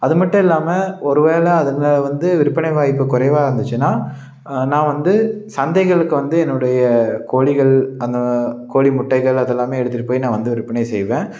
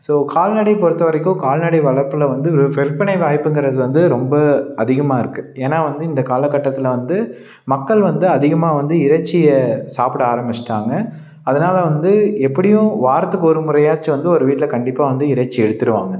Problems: none marked